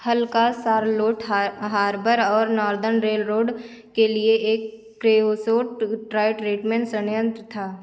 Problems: constant background noise